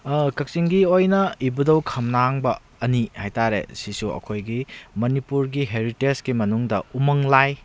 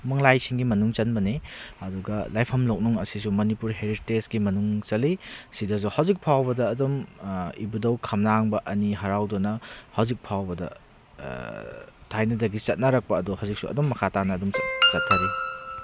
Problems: background sounds at intervals